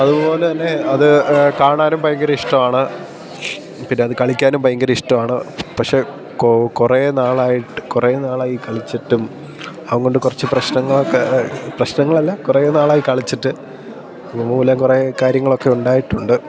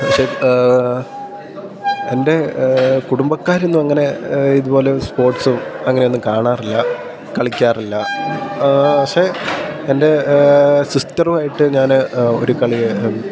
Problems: background sounds at intervals